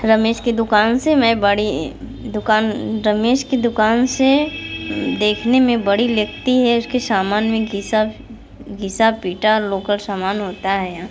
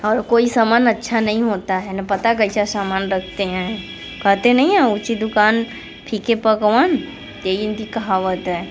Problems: constant background noise